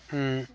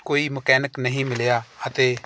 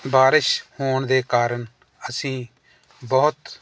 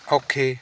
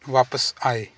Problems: none marked